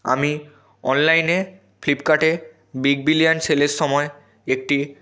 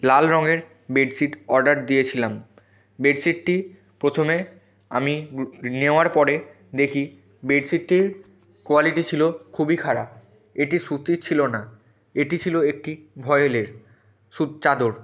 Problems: background conversations at intervals